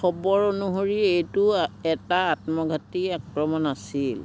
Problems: constant background noise